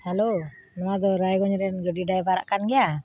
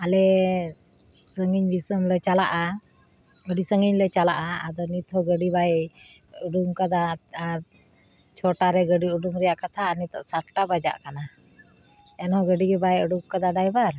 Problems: constant background noise